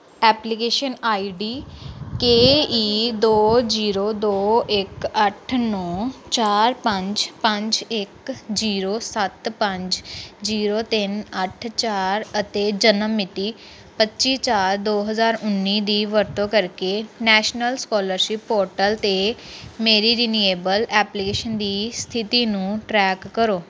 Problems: constant background noise